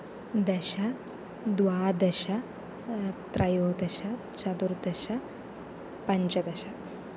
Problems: none marked